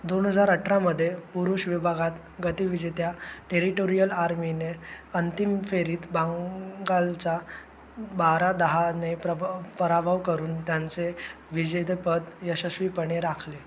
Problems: constant background noise